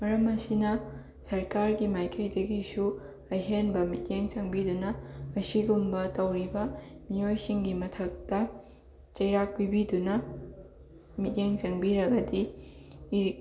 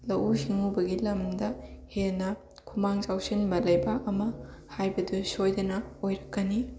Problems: constant background noise, continuous background conversations